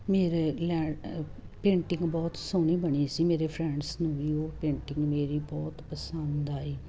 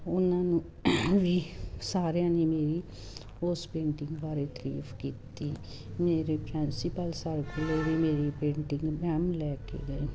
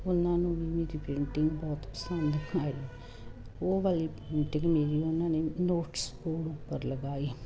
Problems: constant background noise